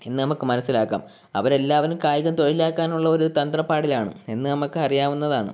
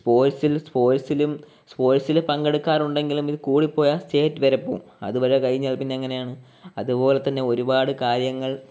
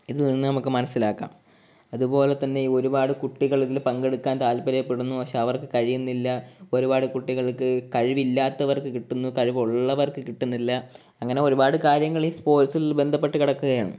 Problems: background sounds at intervals